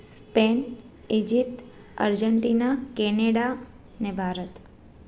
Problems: none marked